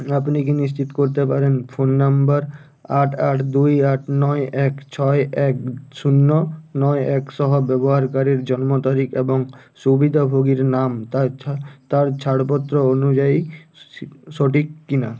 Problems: constant background noise